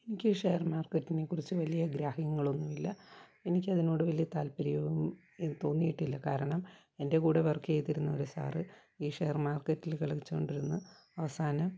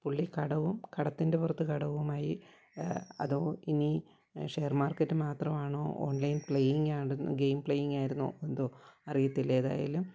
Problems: constant background noise, low volume